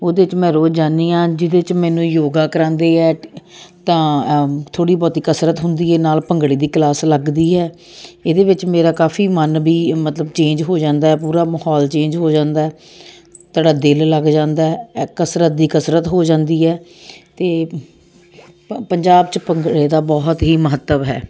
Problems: none marked